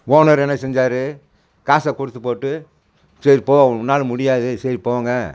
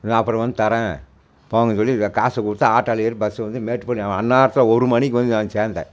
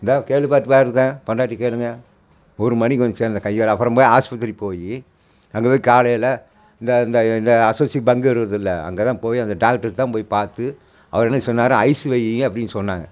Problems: none marked